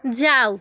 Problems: constant background noise